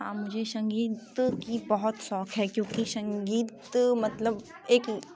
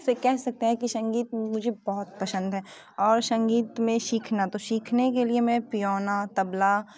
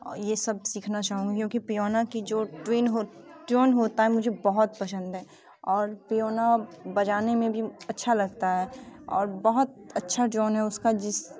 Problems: constant background noise